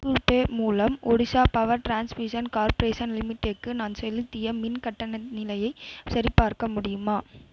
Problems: none marked